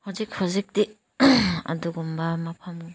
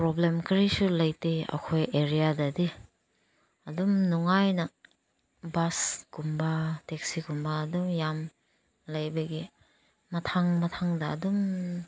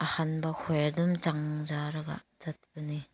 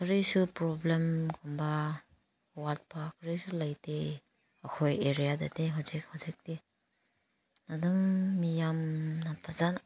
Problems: background sounds at intervals